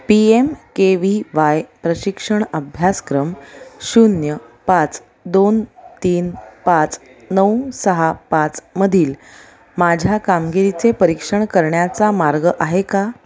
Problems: constant background noise, continuous background conversations